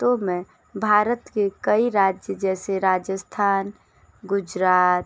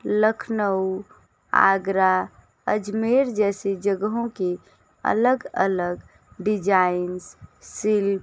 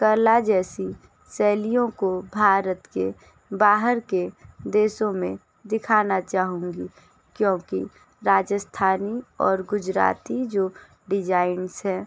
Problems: background sounds at intervals